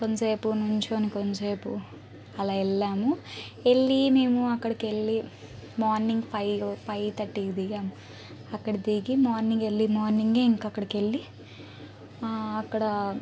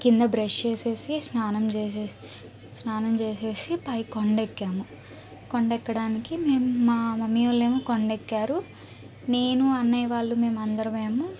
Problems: none marked